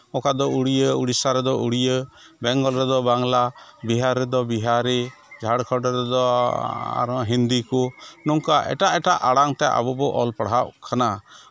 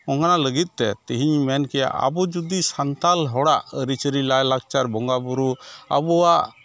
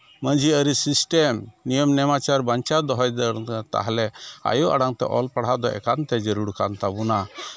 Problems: none marked